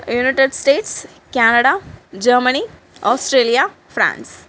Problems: none marked